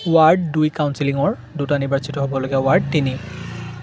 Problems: none marked